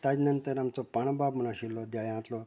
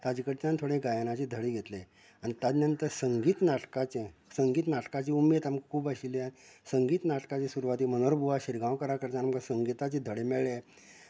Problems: background conversations at intervals, low volume